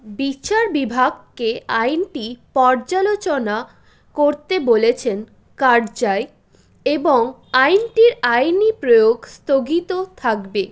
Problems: background sounds at intervals